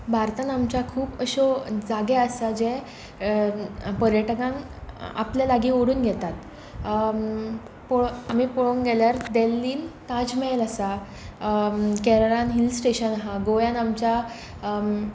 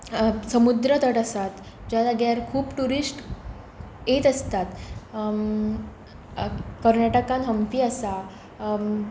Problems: constant background noise